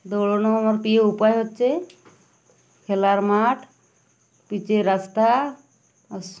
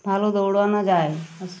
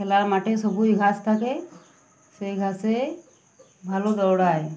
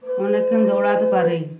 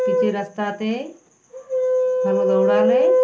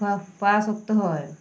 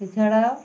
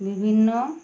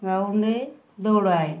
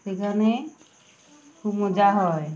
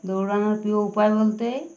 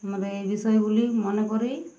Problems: none marked